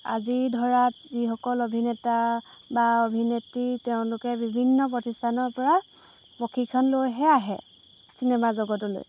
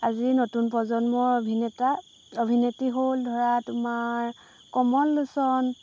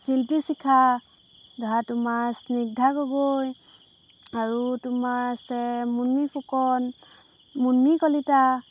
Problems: background sounds at intervals